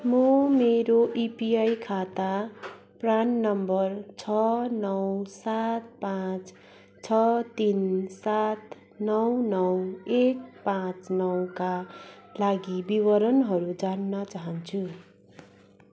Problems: background sounds at intervals, continuous background conversations